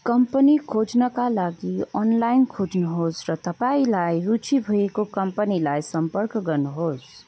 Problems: none marked